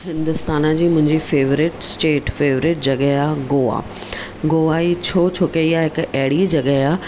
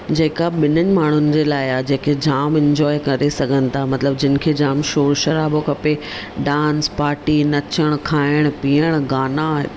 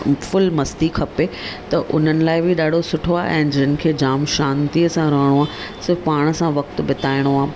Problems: none marked